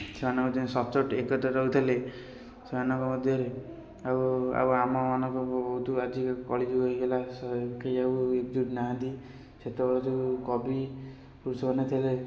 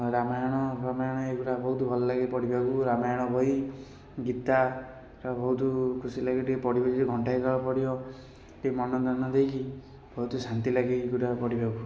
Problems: background sounds at intervals